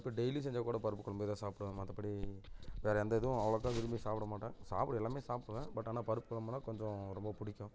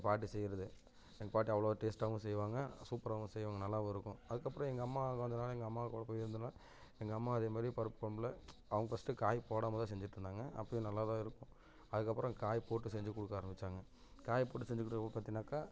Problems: background sounds at intervals